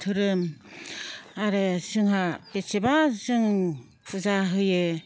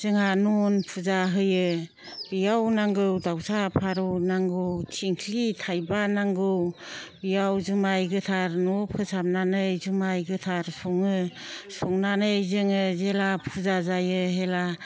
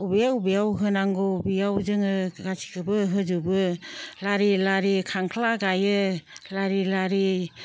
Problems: none marked